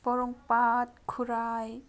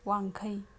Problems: none marked